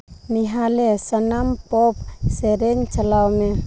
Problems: background sounds at intervals